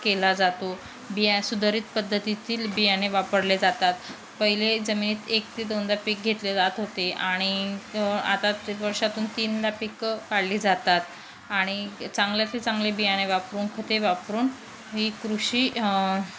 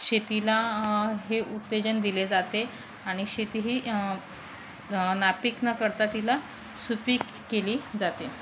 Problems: constant background noise